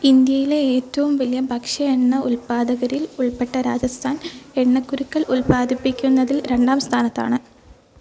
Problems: none marked